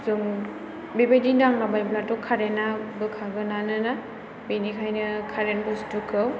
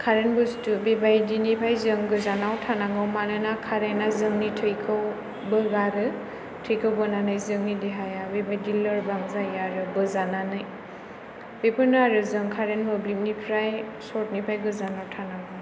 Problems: none marked